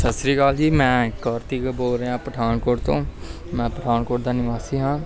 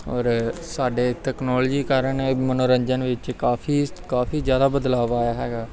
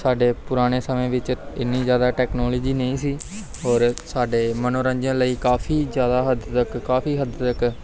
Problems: none marked